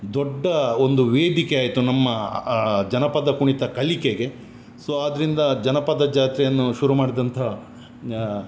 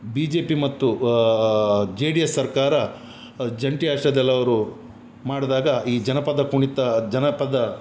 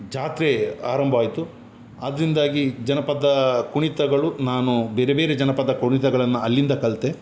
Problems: none marked